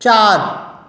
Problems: background conversations at intervals